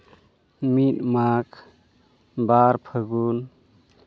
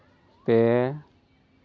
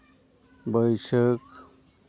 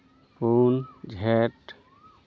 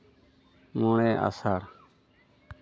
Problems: none marked